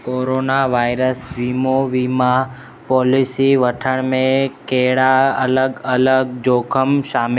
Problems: constant background noise